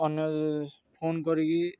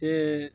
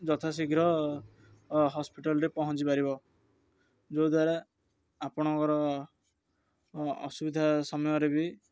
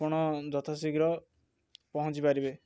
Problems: none marked